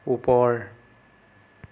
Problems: none marked